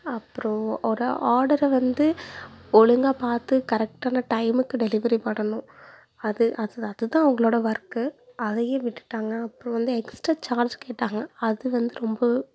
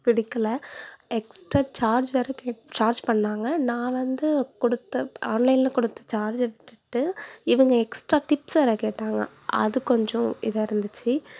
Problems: background sounds at intervals